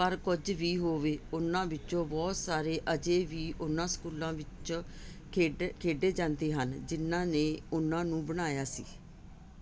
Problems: none marked